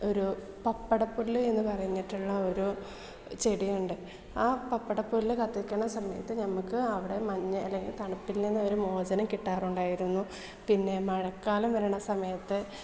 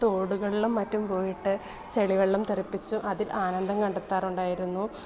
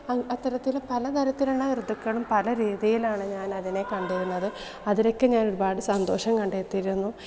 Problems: low volume